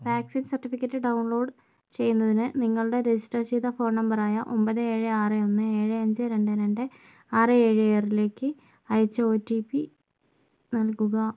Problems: low volume